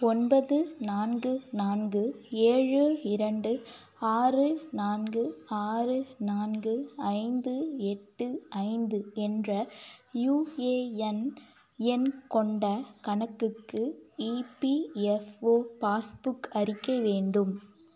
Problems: none marked